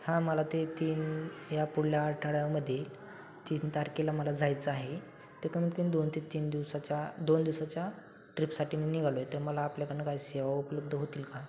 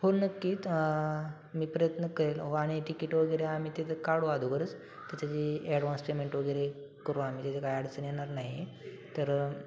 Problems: constant background noise, continuous background conversations